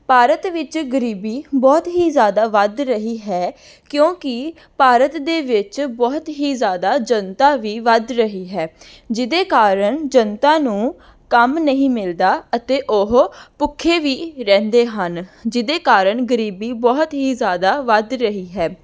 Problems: background sounds at intervals